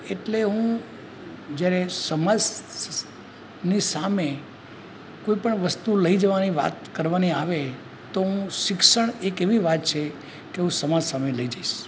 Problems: constant background noise